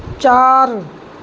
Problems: constant background noise